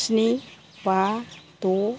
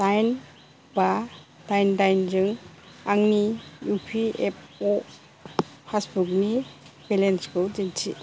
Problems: constant background noise, low volume